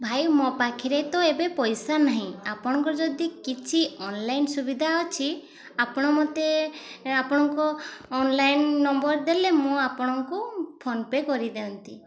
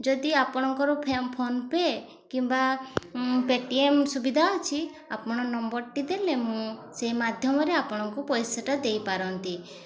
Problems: constant background noise